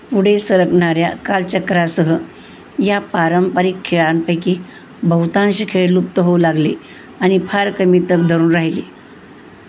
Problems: none marked